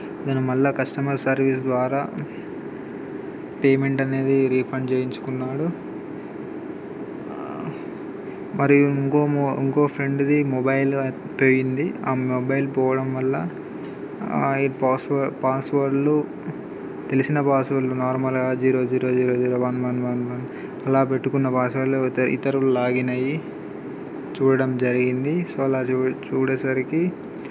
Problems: constant background noise